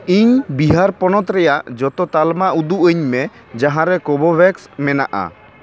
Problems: background sounds at intervals, background conversations at intervals